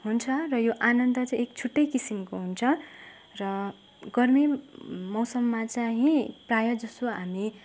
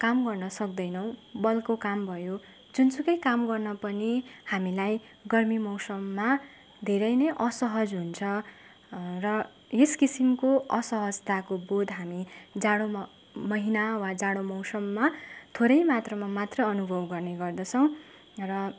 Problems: none marked